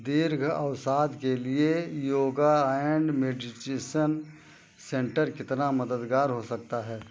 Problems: none marked